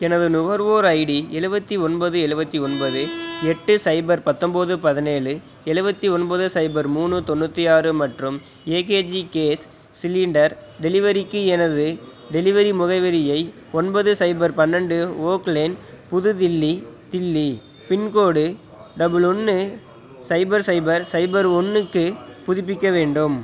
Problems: background sounds at intervals